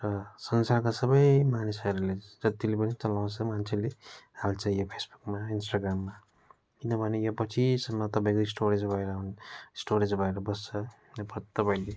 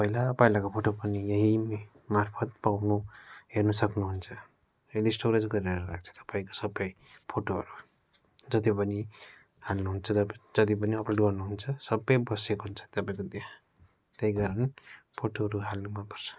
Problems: none marked